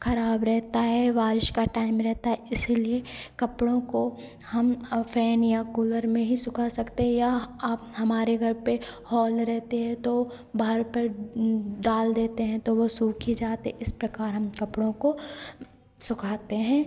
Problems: constant background noise, echo